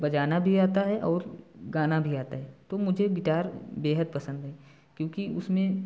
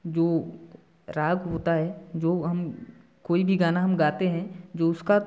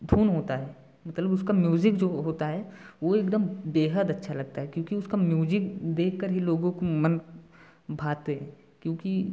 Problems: background sounds at intervals